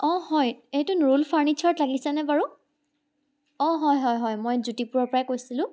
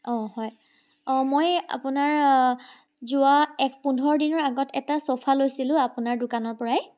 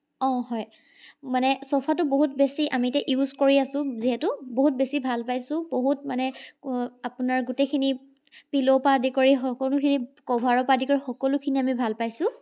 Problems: background sounds at intervals